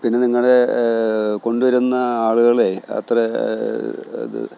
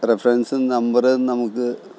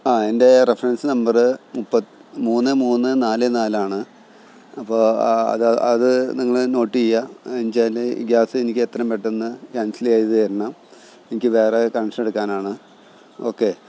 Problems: background sounds at intervals